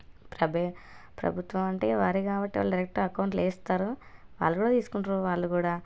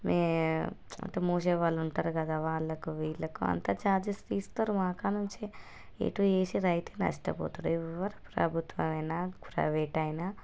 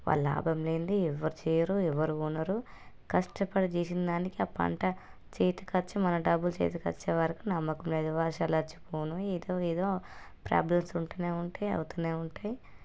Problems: low volume